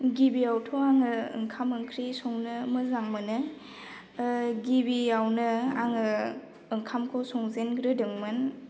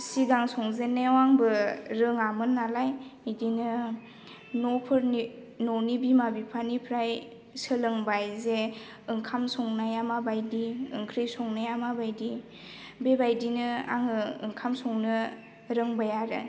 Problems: none marked